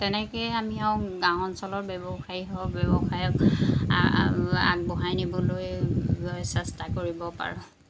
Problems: constant background noise